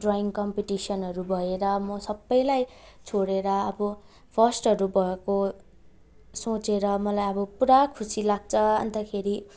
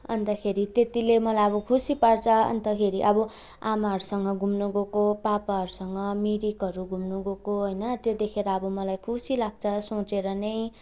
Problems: none marked